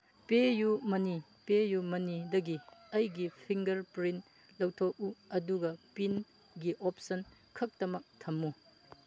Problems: background sounds at intervals